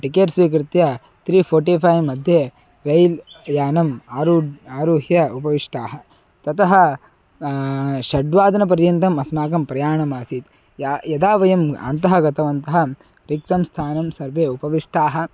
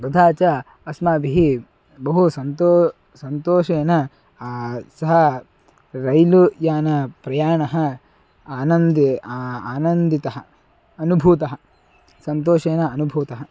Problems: constant background noise, continuous background conversations